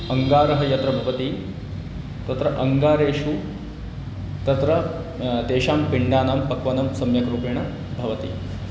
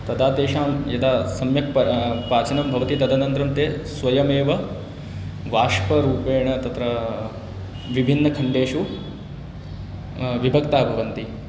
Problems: none marked